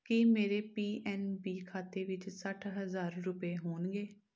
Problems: none marked